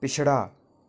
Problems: none marked